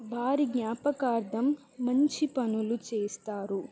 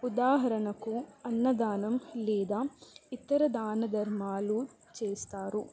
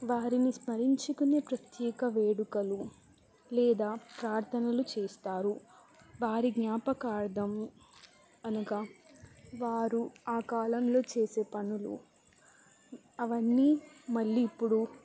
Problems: constant background noise, low volume